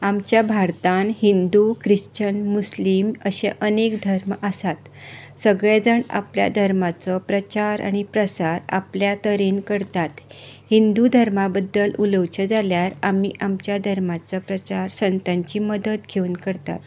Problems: background sounds at intervals